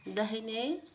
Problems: none marked